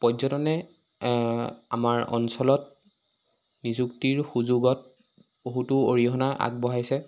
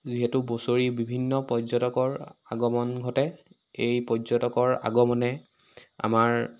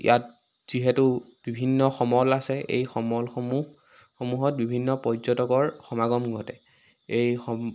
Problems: none marked